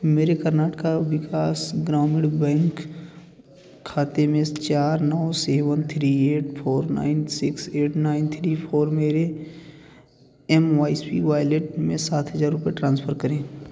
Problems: constant background noise